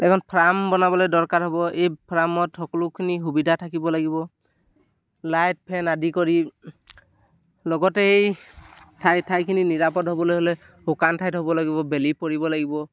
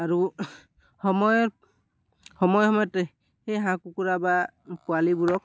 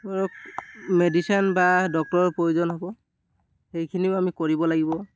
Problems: none marked